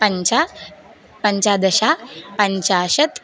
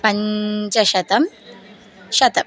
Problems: background sounds at intervals